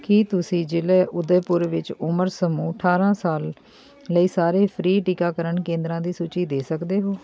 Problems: background sounds at intervals, continuous background conversations